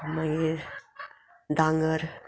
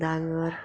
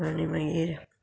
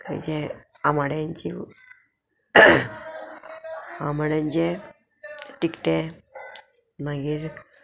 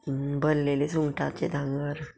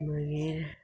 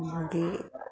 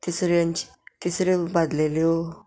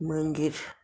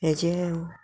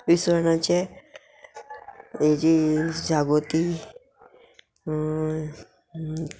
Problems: background sounds at intervals, background conversations at intervals